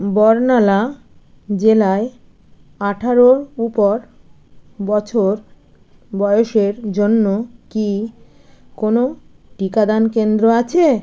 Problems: constant background noise